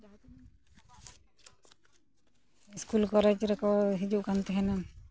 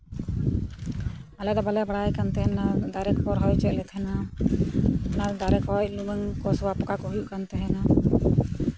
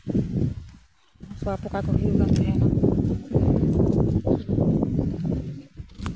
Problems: none marked